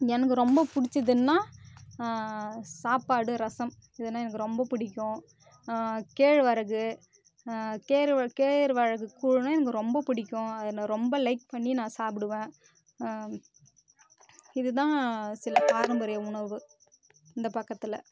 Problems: constant background noise